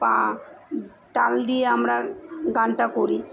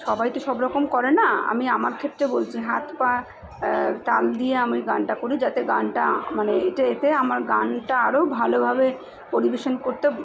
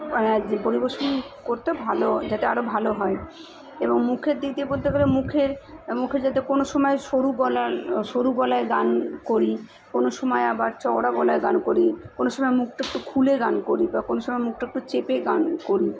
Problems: constant background noise, continuous background conversations